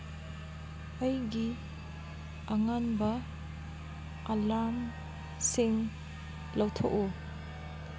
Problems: constant background noise